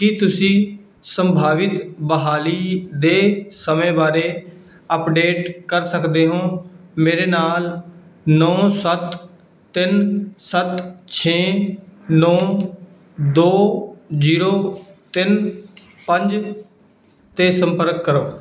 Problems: none marked